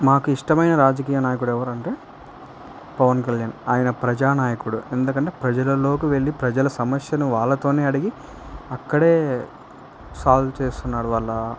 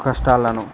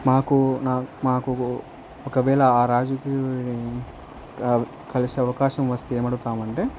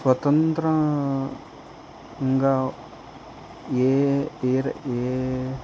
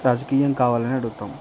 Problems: constant background noise